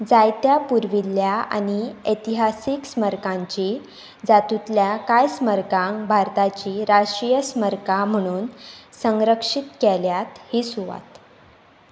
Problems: none marked